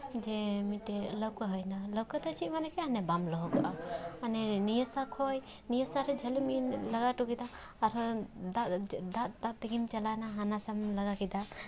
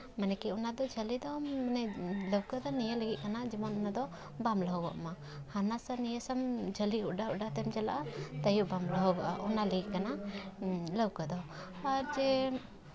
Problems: background sounds at intervals